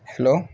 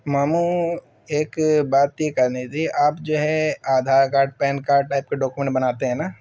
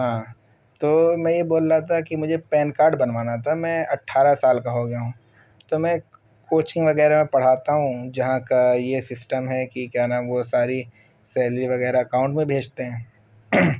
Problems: background sounds at intervals